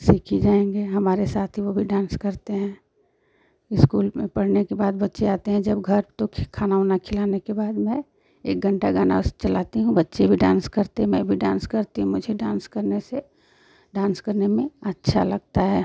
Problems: constant background noise